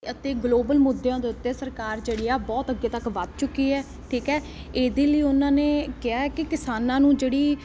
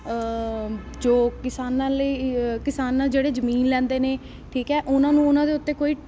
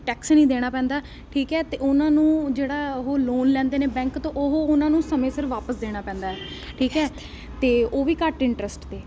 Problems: constant background noise